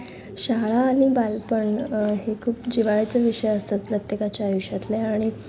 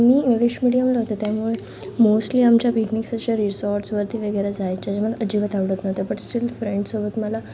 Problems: constant background noise, background conversations at intervals